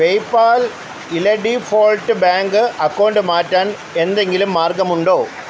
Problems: constant background noise